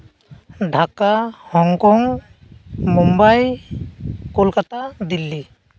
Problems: constant background noise